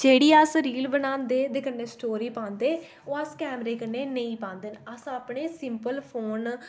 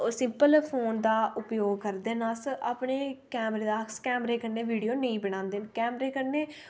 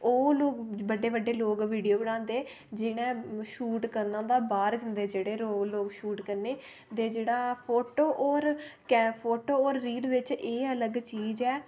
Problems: none marked